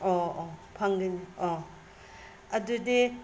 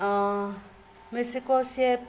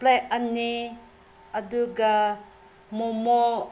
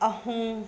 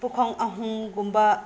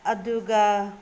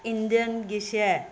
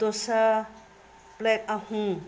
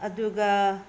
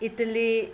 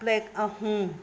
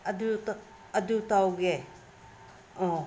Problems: background sounds at intervals